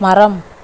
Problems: constant background noise